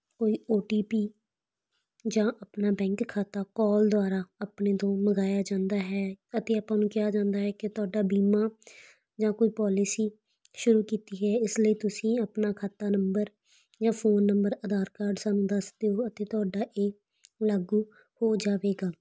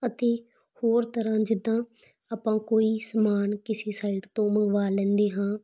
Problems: constant background noise